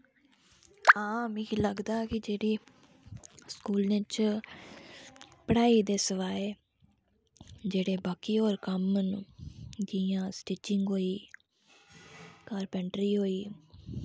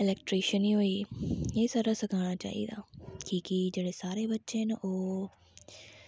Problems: low volume